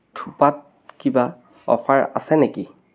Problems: background sounds at intervals